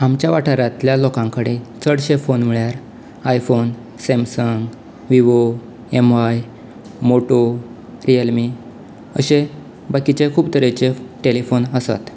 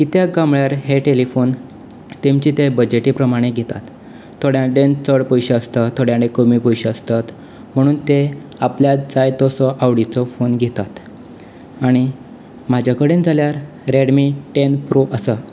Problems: none marked